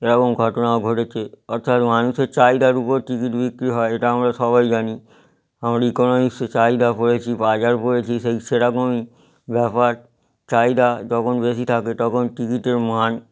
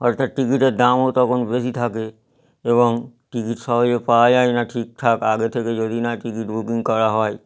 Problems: none marked